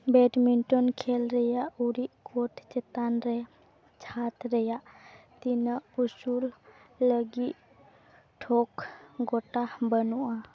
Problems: background sounds at intervals